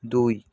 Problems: constant background noise